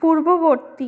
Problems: continuous background conversations